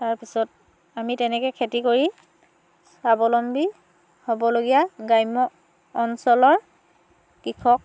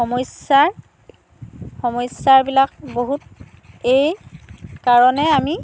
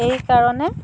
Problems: background sounds at intervals, background conversations at intervals